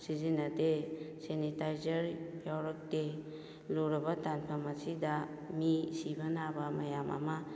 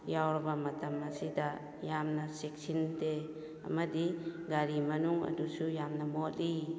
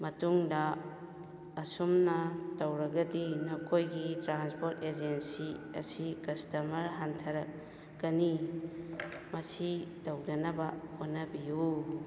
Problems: background sounds at intervals